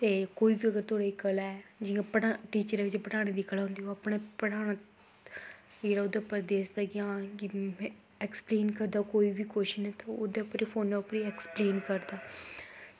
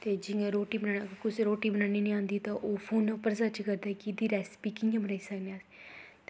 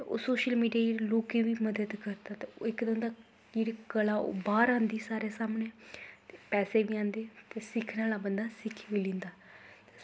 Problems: constant background noise